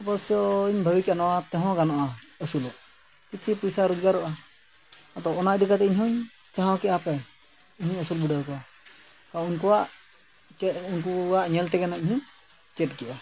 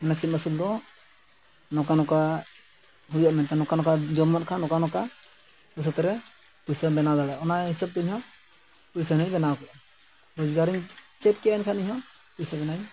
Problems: background sounds at intervals